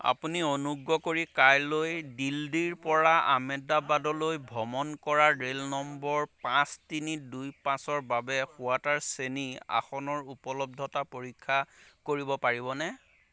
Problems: constant background noise, background conversations at intervals